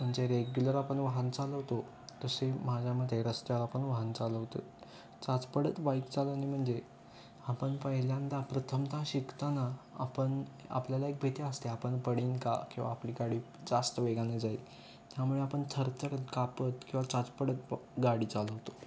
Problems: constant background noise